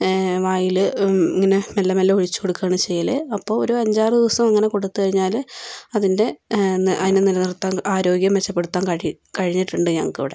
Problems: none marked